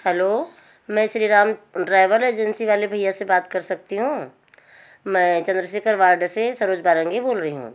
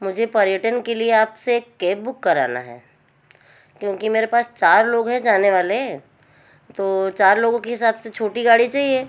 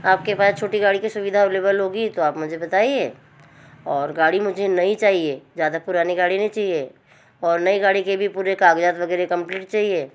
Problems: background sounds at intervals